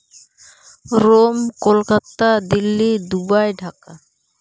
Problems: background sounds at intervals